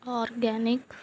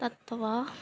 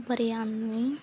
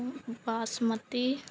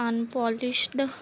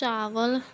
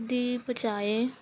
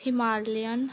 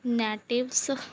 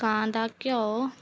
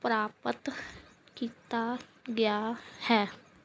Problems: background sounds at intervals